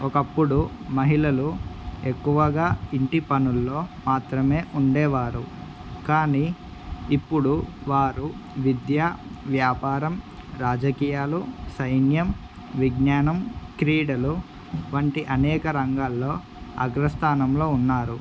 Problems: constant background noise